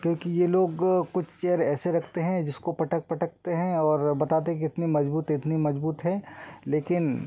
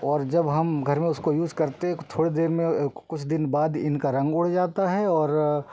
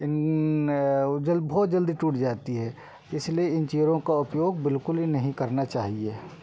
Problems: none marked